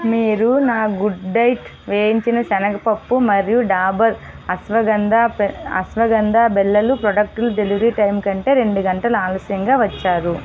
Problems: background sounds at intervals